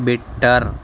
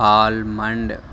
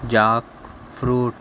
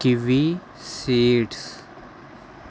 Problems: constant background noise